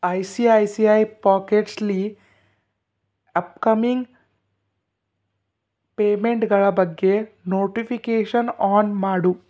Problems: none marked